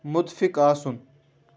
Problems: none marked